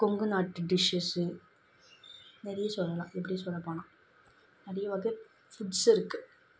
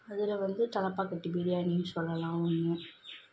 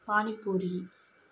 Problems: background sounds at intervals